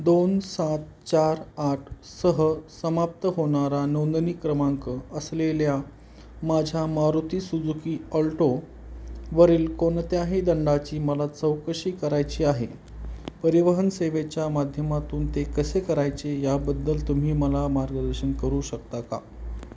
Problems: background sounds at intervals